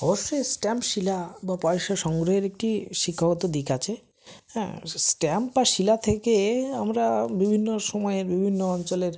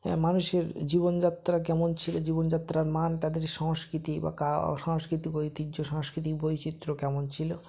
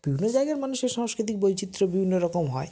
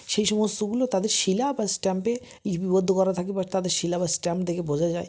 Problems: none marked